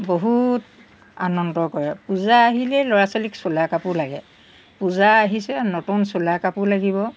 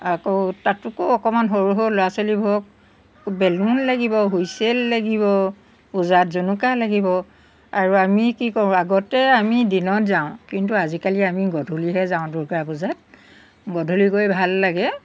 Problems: background sounds at intervals